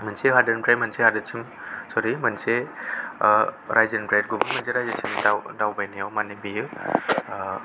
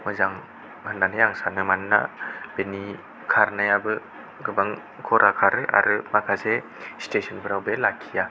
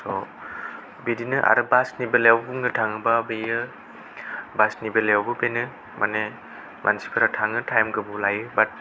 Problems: none marked